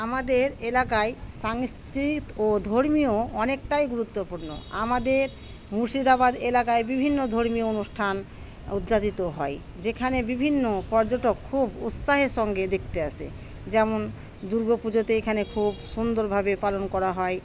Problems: constant background noise